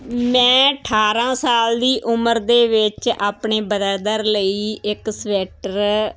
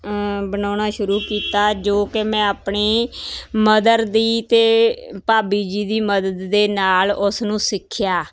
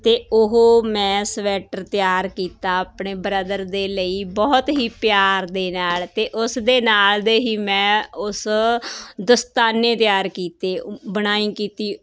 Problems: constant background noise